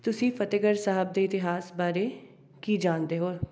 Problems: background sounds at intervals, background conversations at intervals